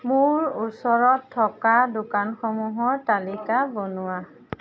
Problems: constant background noise, background conversations at intervals